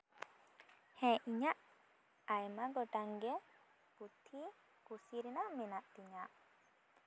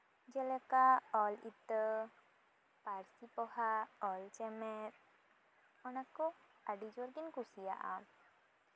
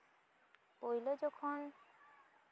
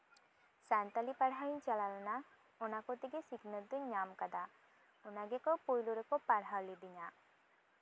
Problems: none marked